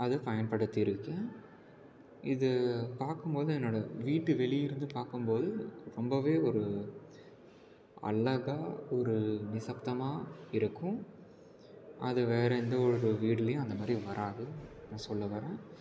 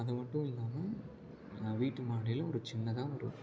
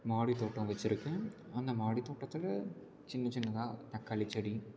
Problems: background conversations at intervals, low volume